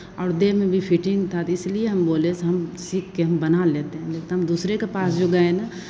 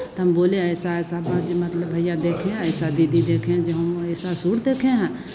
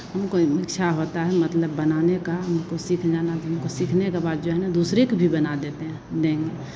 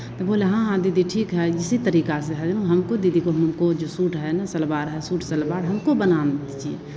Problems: constant background noise